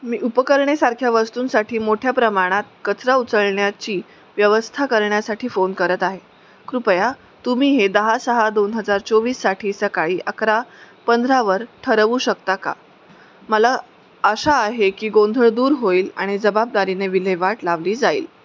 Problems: none marked